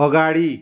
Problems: background sounds at intervals